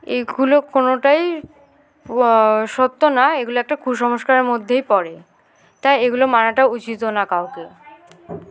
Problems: constant background noise, continuous background conversations